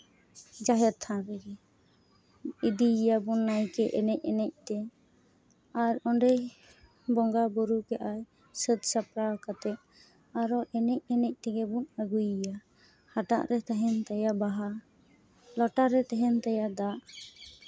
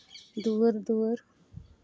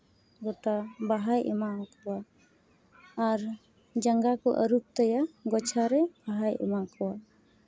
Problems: background sounds at intervals